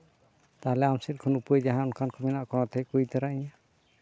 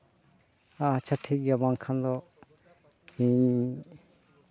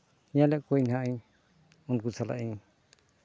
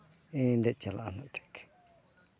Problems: background sounds at intervals